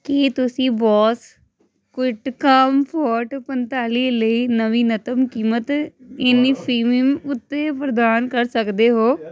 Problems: constant background noise